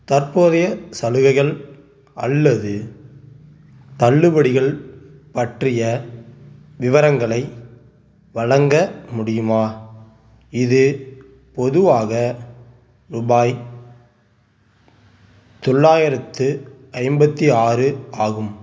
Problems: background sounds at intervals